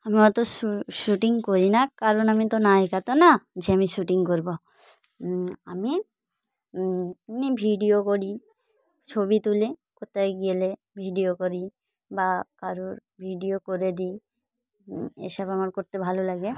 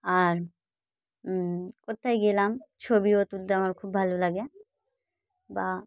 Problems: background sounds at intervals, continuous background conversations